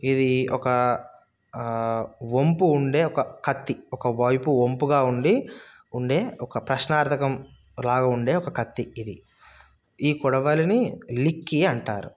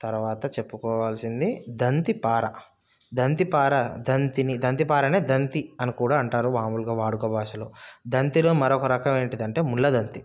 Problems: none marked